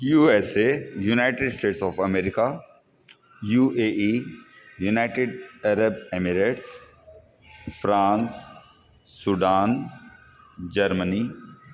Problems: constant background noise, echo